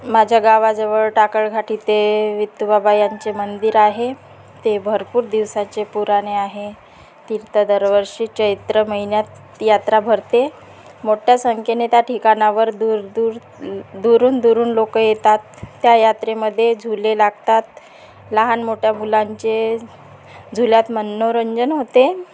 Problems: constant background noise, background conversations at intervals